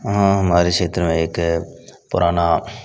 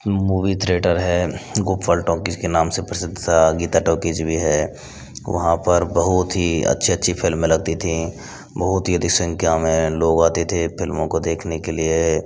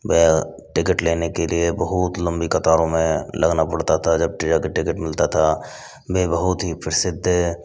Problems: constant background noise